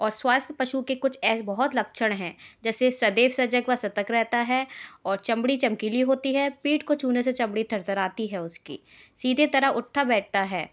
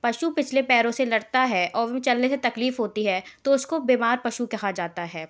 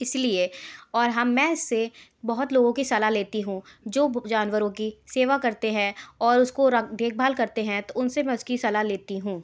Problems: background sounds at intervals